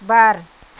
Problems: constant background noise